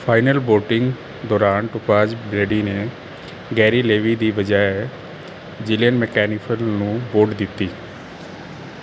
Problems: background sounds at intervals